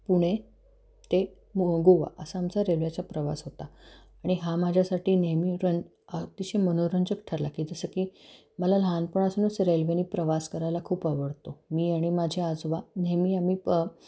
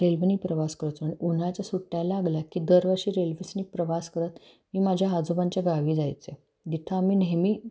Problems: none marked